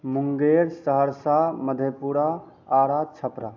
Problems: constant background noise